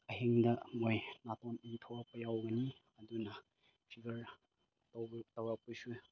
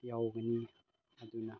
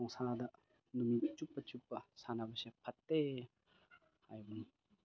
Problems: none marked